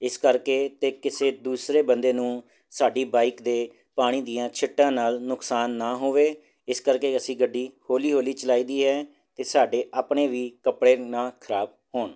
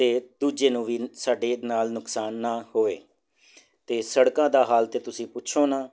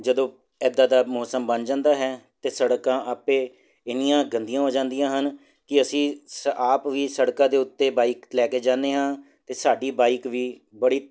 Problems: none marked